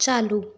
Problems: constant background noise